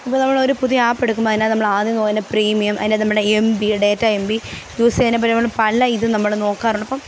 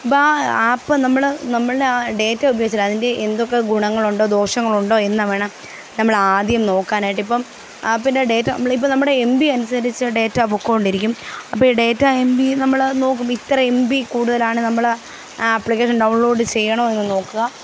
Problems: none marked